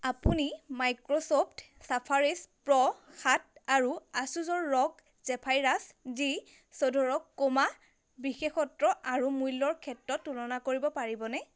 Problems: constant background noise